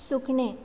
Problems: none marked